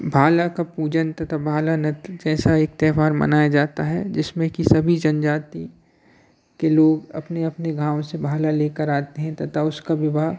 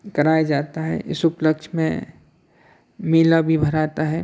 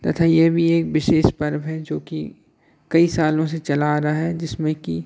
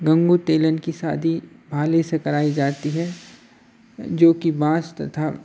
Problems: none marked